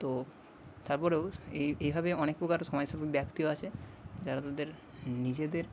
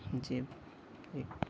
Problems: none marked